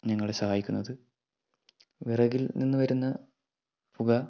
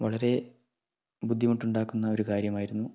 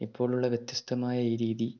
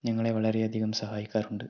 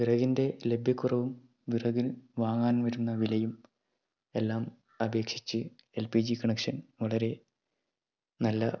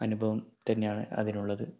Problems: low volume